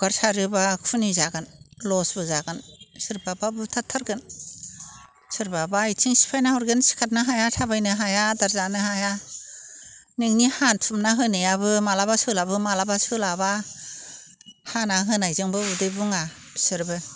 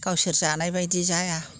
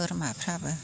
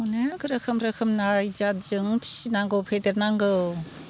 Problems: constant background noise